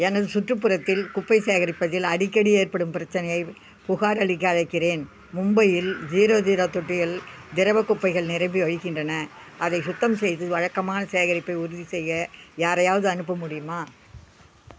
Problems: none marked